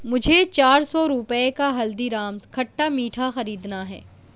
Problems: none marked